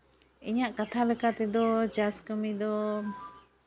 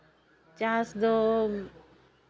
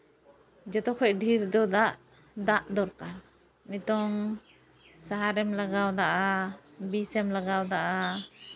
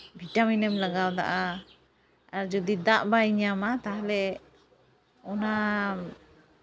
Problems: none marked